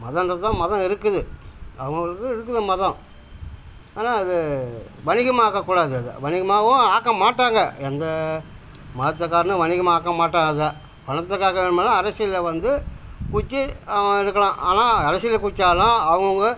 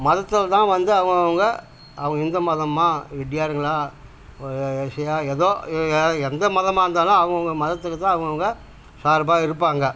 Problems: constant background noise